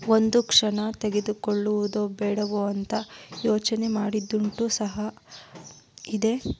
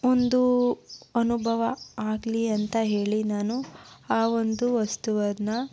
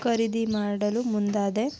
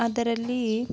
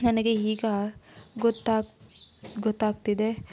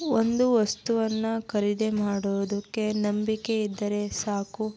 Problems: constant background noise